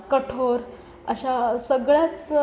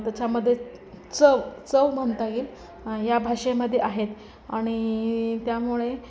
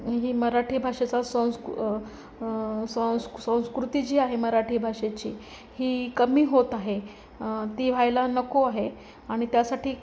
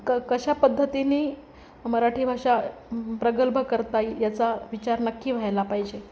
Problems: constant background noise, continuous background conversations